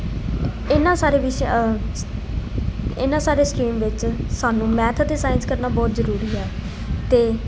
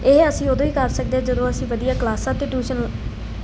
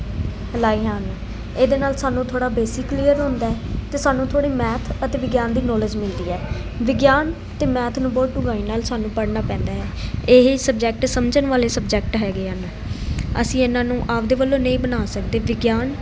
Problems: constant background noise, background conversations at intervals